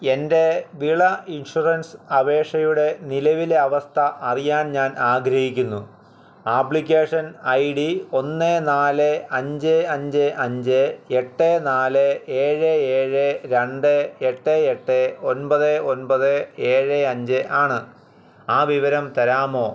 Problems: none marked